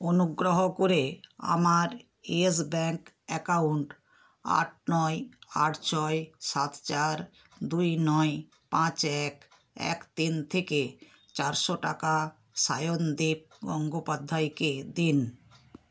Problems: background sounds at intervals